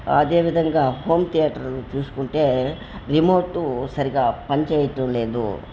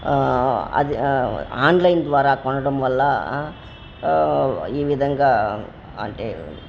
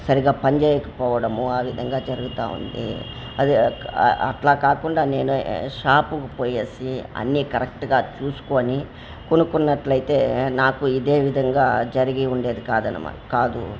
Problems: constant background noise, background conversations at intervals